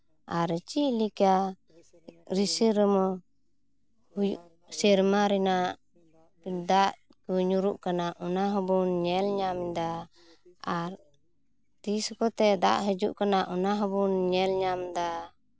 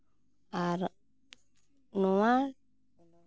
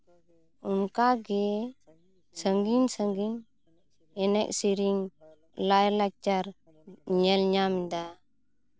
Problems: background sounds at intervals